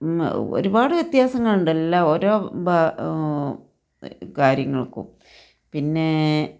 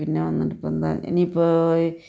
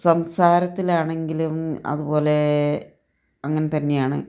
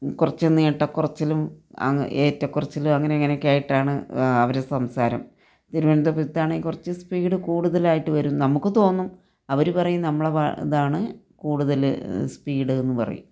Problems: none marked